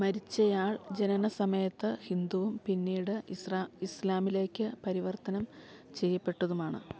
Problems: none marked